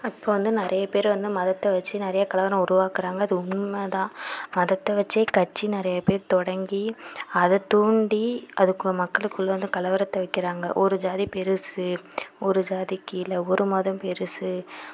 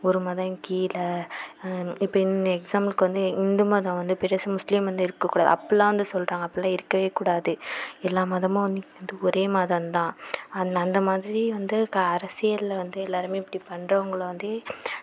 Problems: none marked